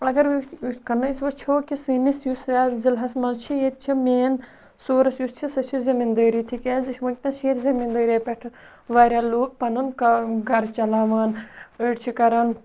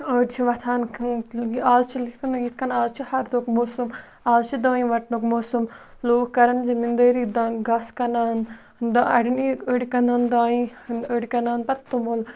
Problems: none marked